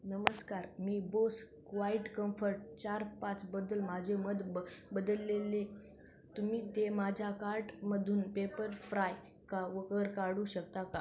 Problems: none marked